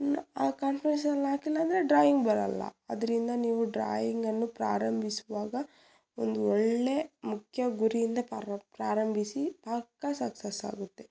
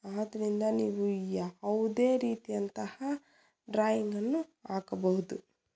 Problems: none marked